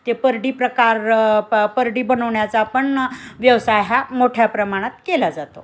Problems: constant background noise, background conversations at intervals